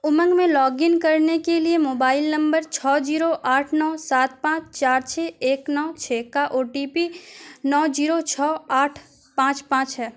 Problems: none marked